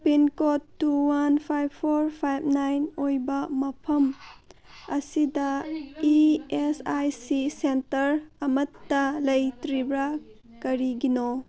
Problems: background conversations at intervals